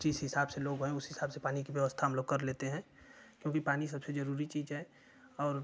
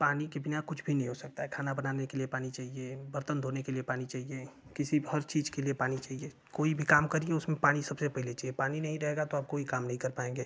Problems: constant background noise